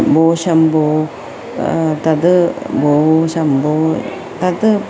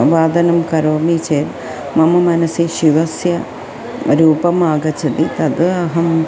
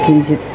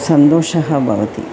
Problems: constant background noise, continuous background conversations